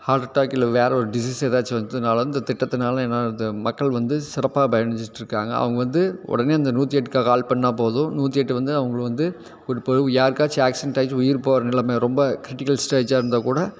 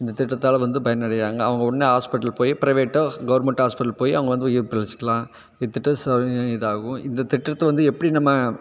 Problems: constant background noise